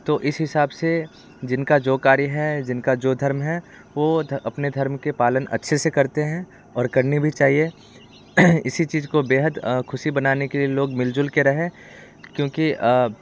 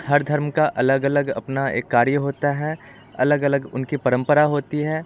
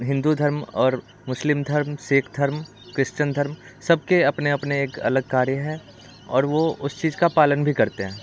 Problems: background sounds at intervals